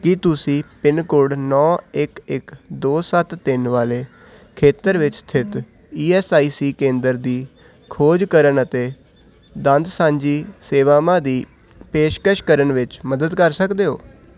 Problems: none marked